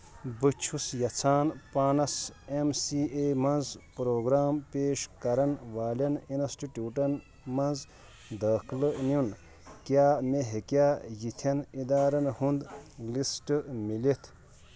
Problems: background sounds at intervals